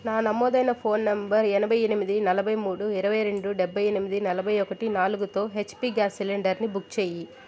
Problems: background sounds at intervals